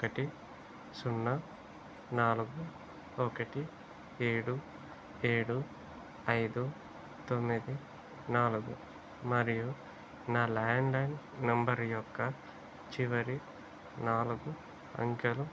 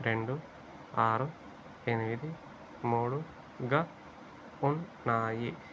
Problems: low volume